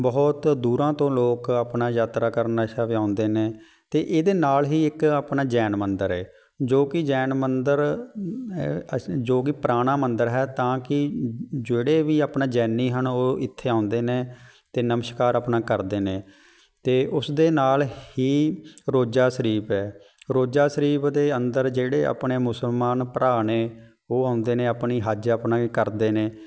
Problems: background sounds at intervals